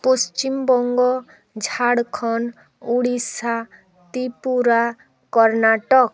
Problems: constant background noise, background conversations at intervals